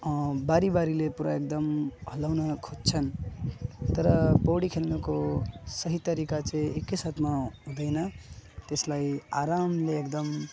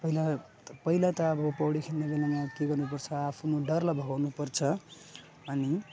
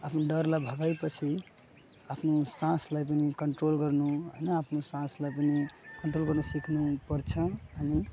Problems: background sounds at intervals